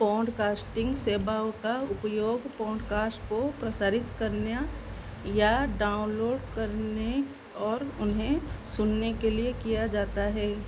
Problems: constant background noise